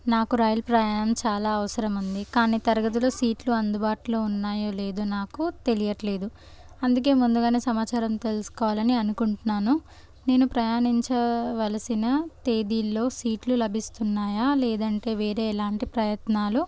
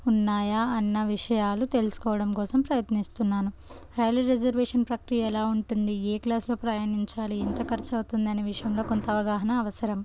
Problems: none marked